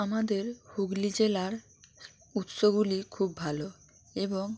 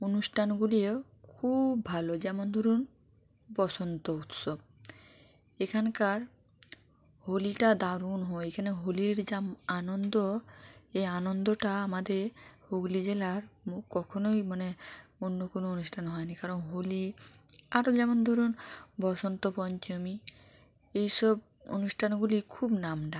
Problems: constant background noise